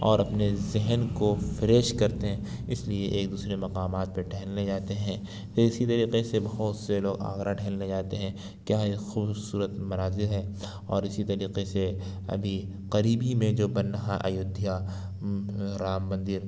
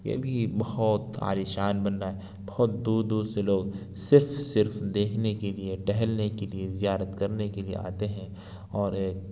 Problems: none marked